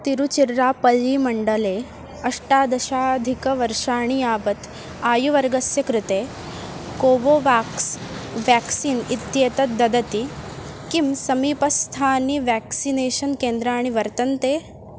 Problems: constant background noise